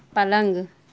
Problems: none marked